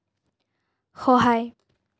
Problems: none marked